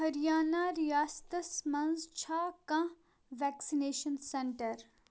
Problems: background sounds at intervals